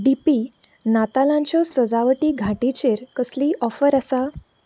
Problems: low volume